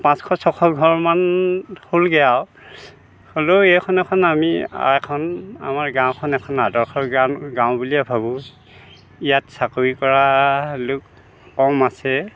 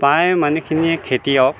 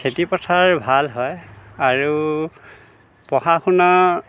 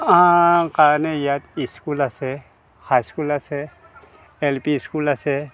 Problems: background conversations at intervals